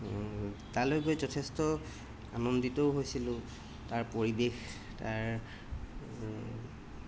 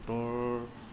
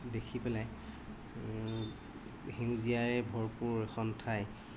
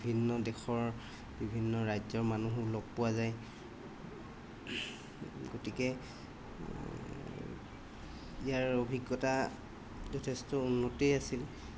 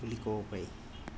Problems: background sounds at intervals